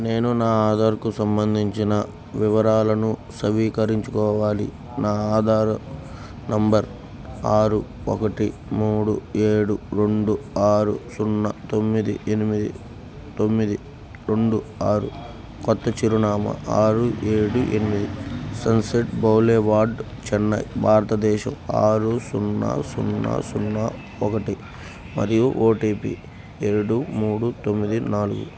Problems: background sounds at intervals